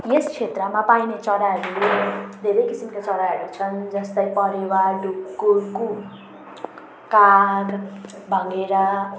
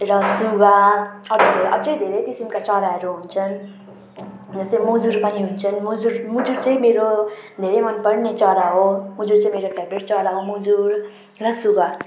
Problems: background sounds at intervals